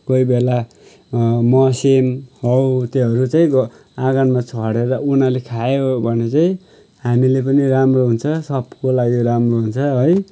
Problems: none marked